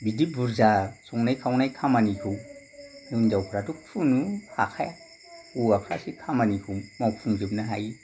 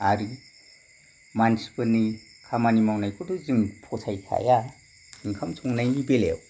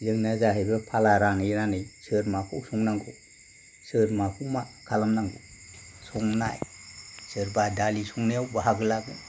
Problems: background sounds at intervals